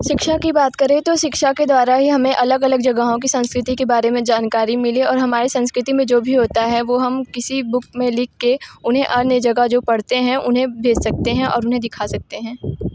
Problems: echo